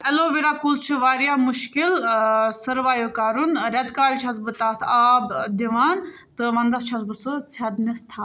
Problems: none marked